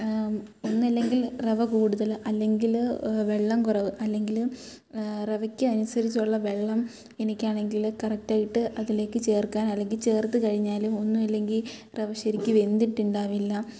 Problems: none marked